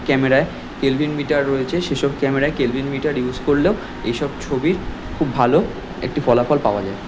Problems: constant background noise, background conversations at intervals